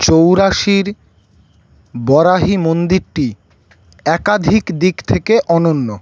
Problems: none marked